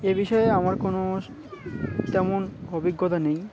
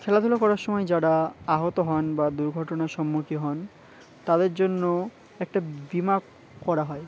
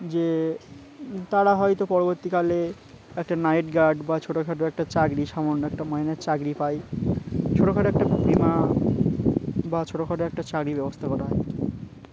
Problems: constant background noise